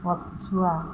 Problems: constant background noise